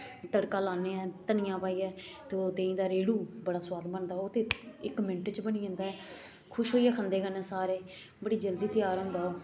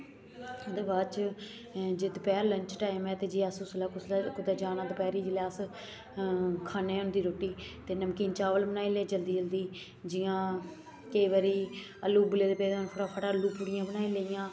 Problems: constant background noise